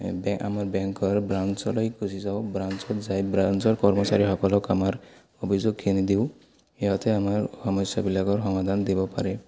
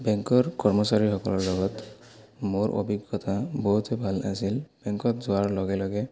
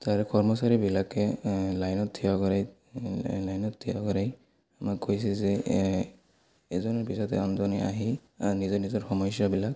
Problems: constant background noise, continuous background conversations